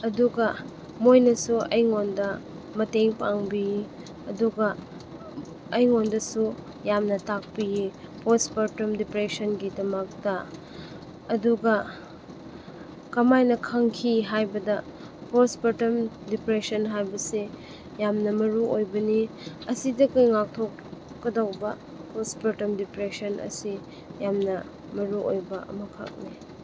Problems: constant background noise